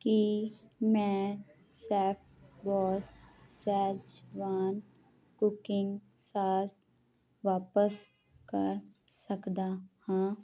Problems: constant background noise